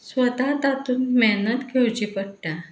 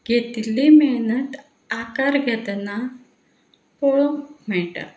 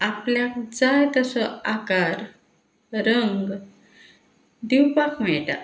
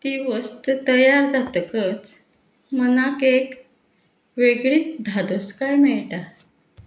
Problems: background sounds at intervals